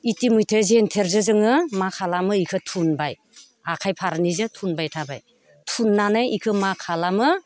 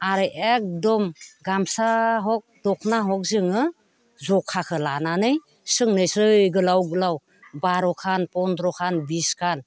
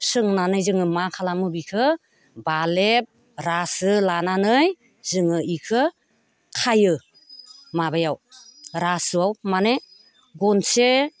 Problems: none marked